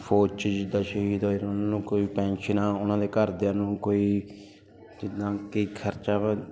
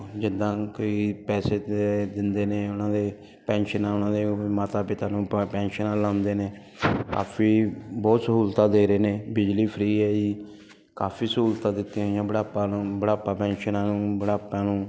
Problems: none marked